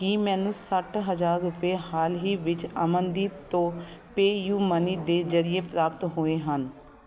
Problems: continuous background conversations